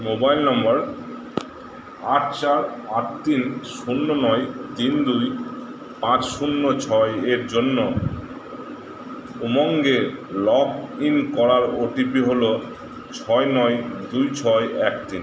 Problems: constant background noise